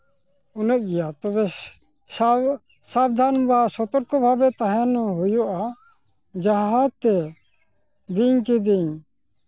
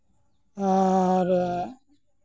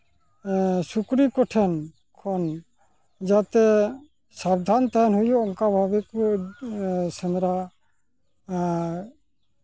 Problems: none marked